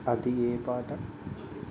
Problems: low volume